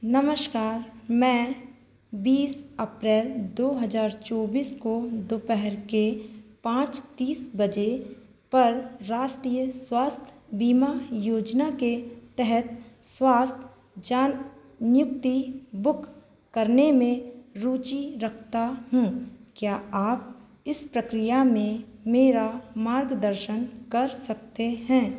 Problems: background sounds at intervals